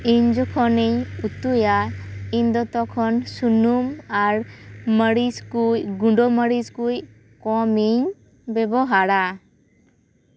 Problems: background sounds at intervals